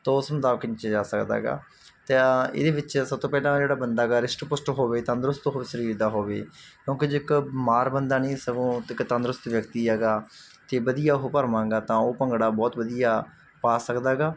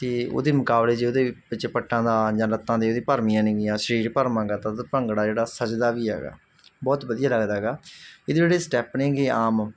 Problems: none marked